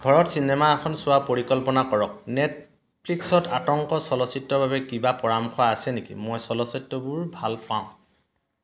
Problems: none marked